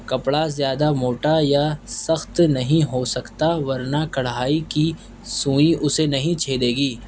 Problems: background sounds at intervals